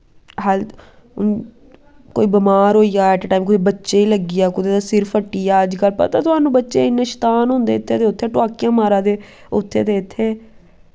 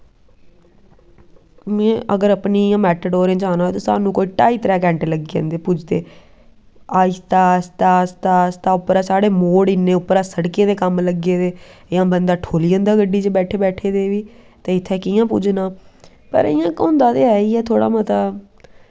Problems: background sounds at intervals